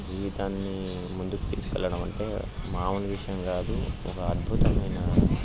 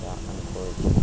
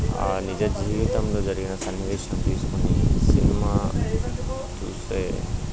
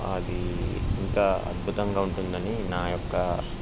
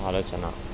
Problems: constant background noise